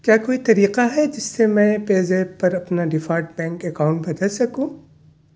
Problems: none marked